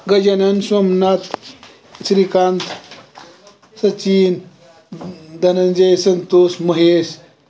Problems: constant background noise, background conversations at intervals